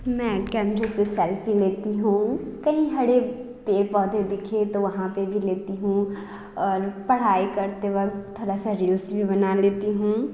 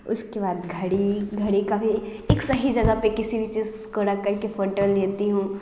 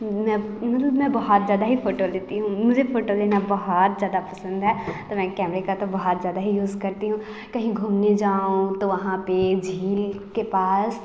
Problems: constant background noise